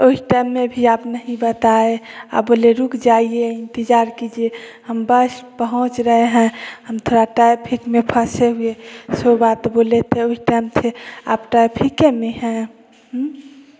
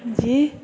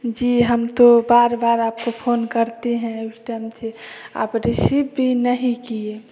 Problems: none marked